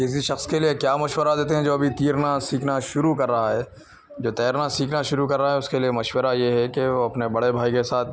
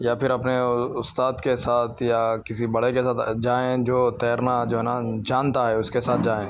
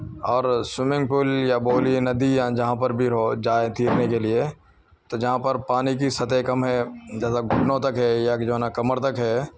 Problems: background sounds at intervals